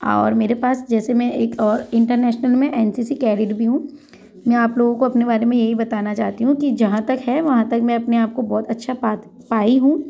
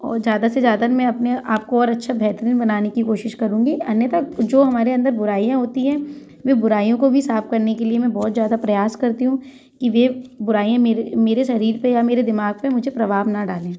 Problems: constant background noise, background conversations at intervals